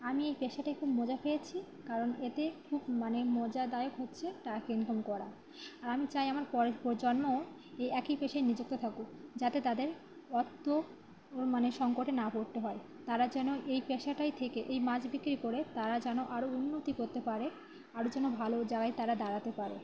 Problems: background sounds at intervals